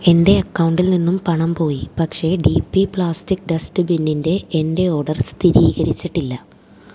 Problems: low volume